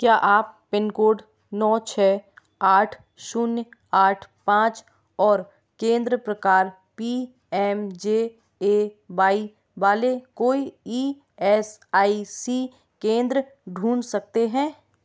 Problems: background sounds at intervals